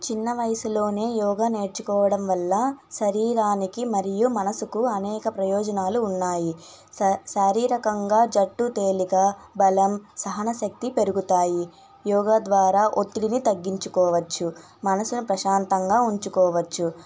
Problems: none marked